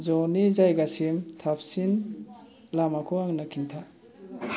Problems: background conversations at intervals